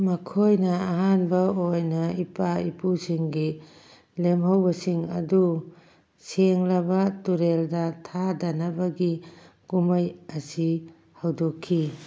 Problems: none marked